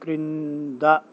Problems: none marked